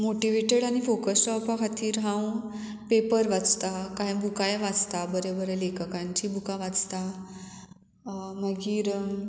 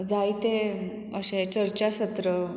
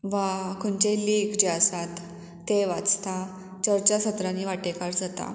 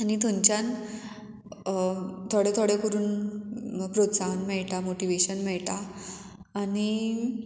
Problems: none marked